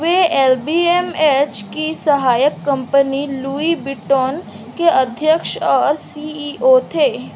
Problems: none marked